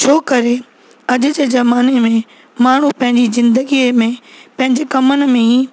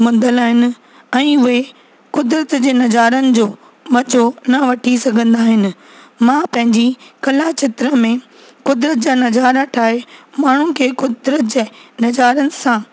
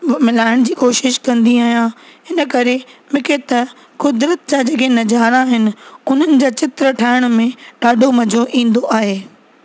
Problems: constant background noise